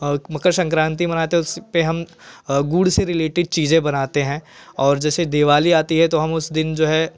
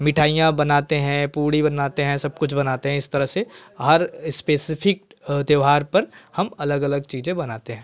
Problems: constant background noise